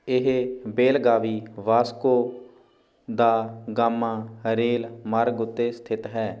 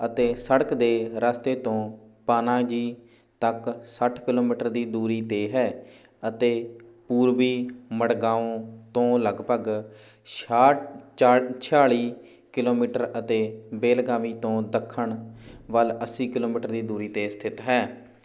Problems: background sounds at intervals